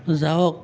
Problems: background sounds at intervals, background conversations at intervals